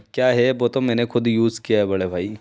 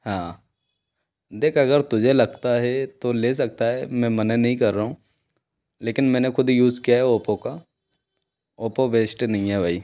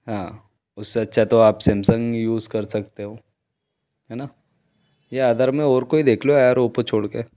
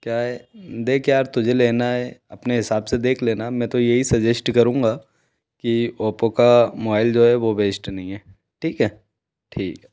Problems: background sounds at intervals